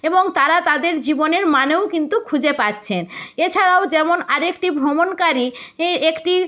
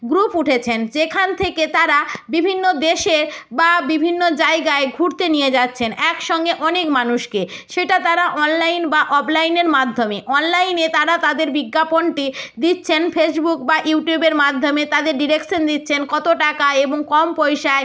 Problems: none marked